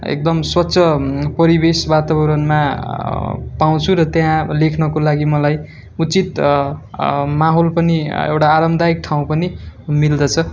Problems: background sounds at intervals